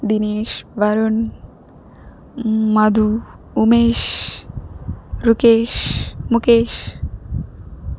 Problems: none marked